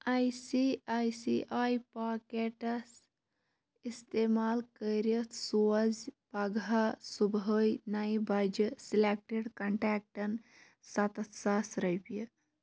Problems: background sounds at intervals